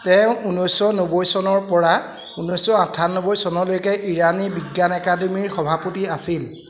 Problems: none marked